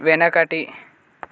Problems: none marked